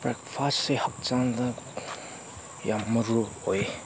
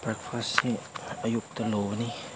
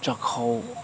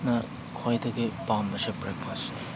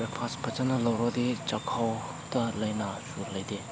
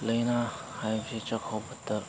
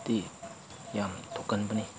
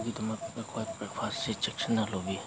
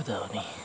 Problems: background sounds at intervals